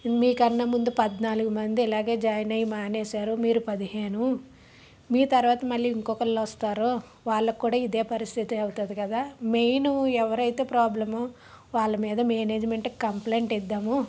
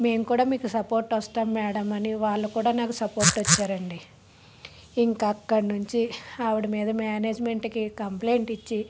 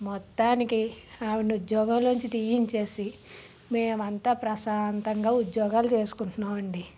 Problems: background sounds at intervals